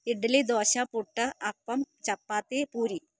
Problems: low volume